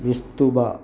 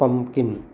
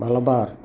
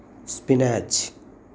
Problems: constant background noise